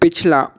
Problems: constant background noise